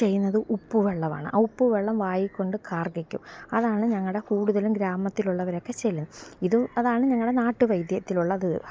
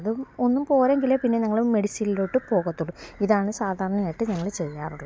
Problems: none marked